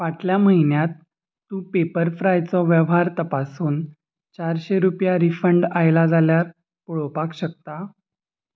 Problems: none marked